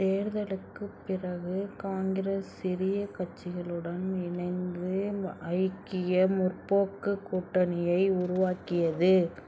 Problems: none marked